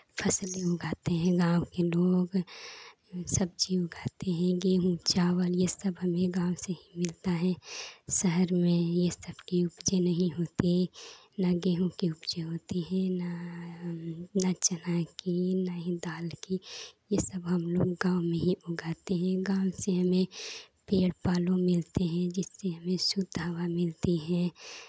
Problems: constant background noise